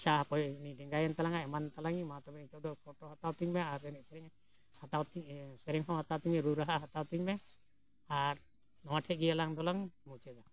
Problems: background sounds at intervals